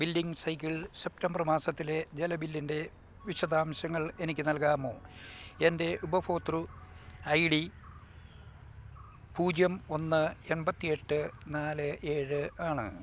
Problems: none marked